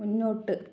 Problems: low volume